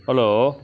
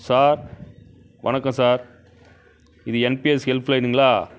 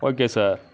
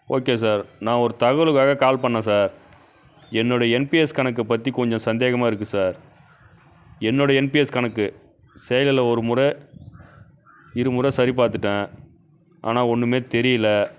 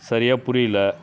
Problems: constant background noise